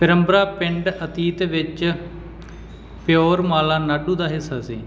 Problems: background sounds at intervals